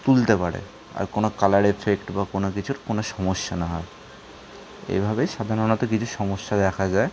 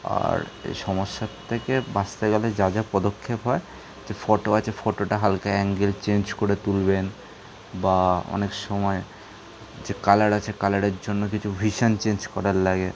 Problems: background sounds at intervals